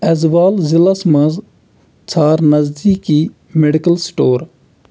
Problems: constant background noise